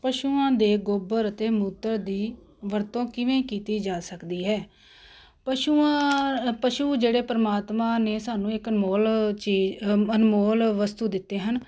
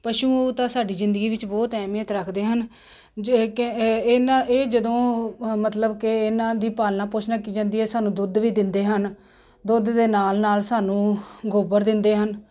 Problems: constant background noise